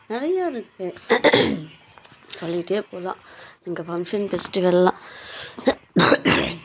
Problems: background sounds at intervals